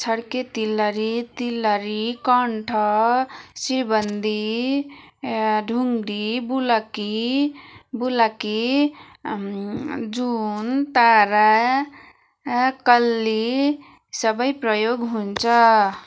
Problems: constant background noise, continuous background conversations